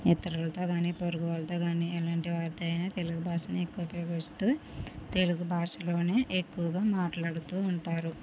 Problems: none marked